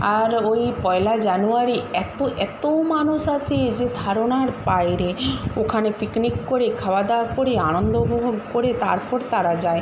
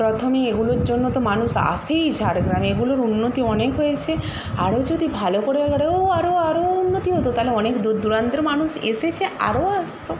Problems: constant background noise